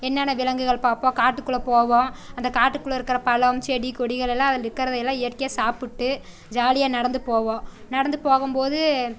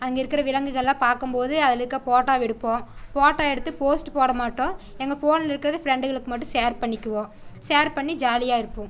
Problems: none marked